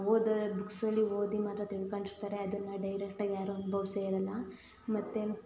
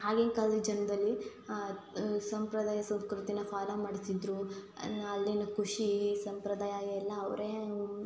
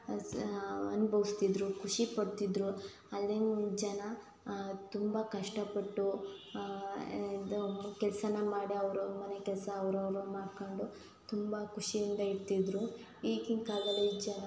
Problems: constant background noise